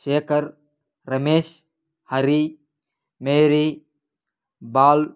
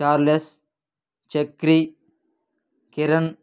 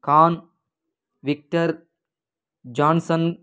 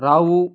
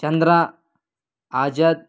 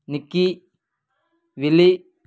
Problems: none marked